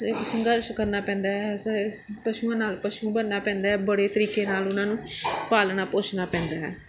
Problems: background sounds at intervals, background conversations at intervals